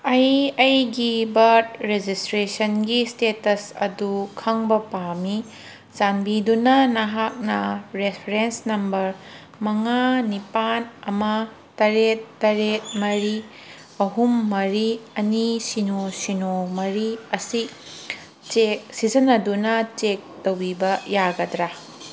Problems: background sounds at intervals